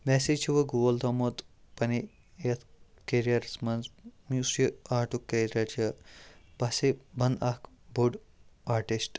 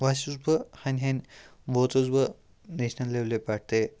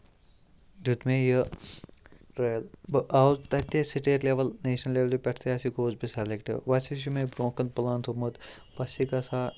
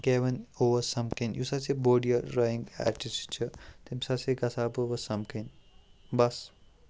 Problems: background sounds at intervals